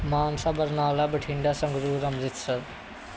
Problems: background sounds at intervals